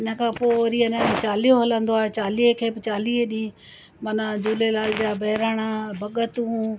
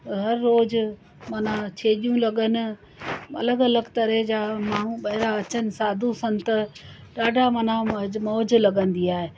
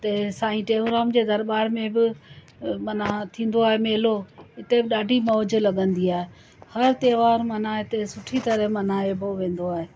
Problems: constant background noise